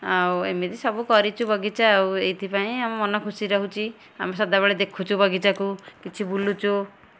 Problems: none marked